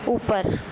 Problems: constant background noise, low volume